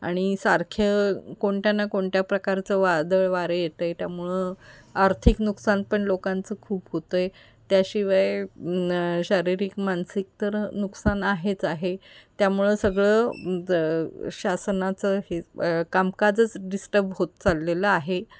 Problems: constant background noise, background conversations at intervals